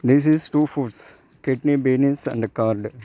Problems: background sounds at intervals